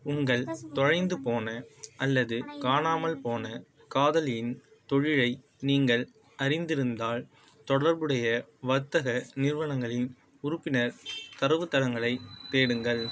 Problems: background sounds at intervals